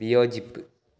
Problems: none marked